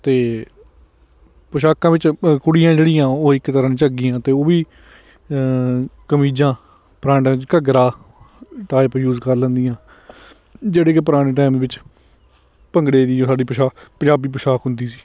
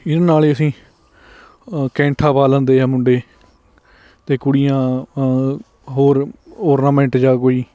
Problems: none marked